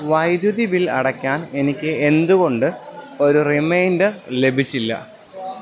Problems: none marked